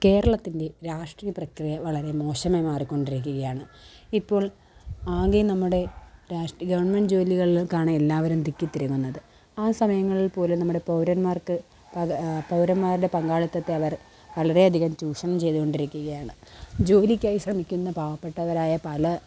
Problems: background sounds at intervals